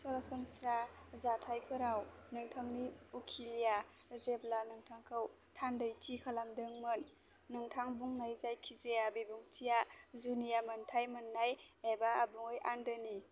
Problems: constant background noise